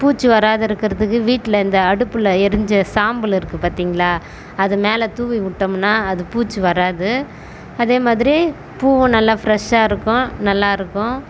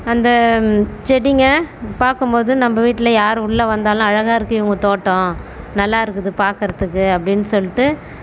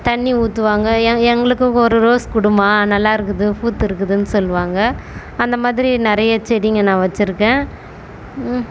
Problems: constant background noise